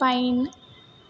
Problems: none marked